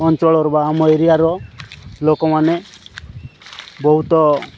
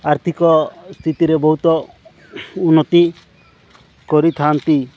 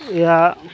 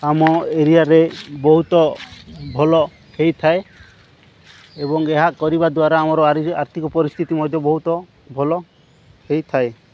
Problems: background sounds at intervals